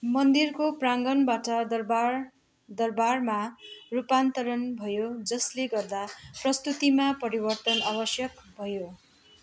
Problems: constant background noise